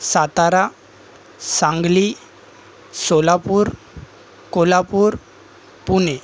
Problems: constant background noise, background conversations at intervals